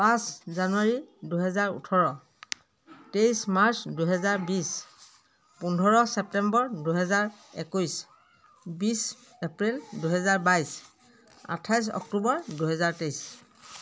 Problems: continuous background conversations